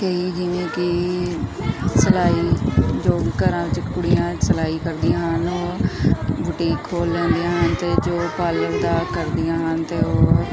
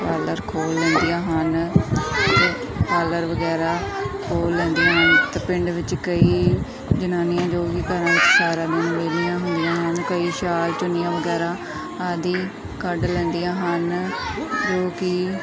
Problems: continuous background conversations